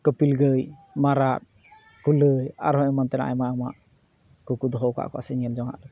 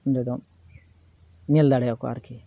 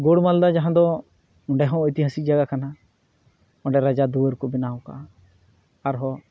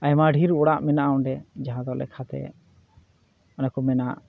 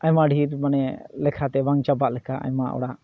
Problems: background sounds at intervals